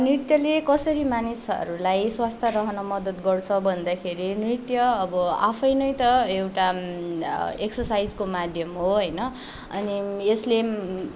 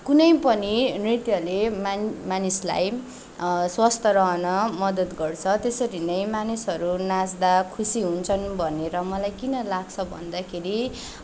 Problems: none marked